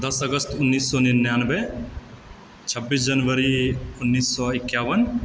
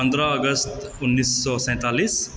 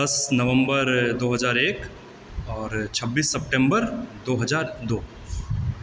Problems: background sounds at intervals